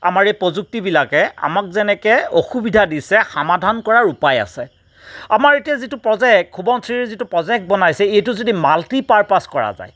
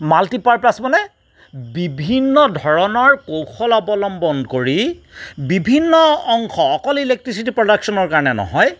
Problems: background sounds at intervals